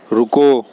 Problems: constant background noise, echo